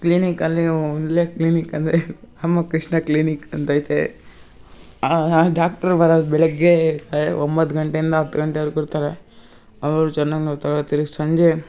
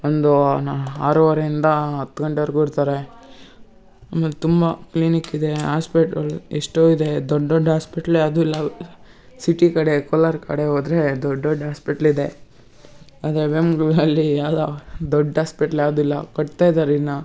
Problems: none marked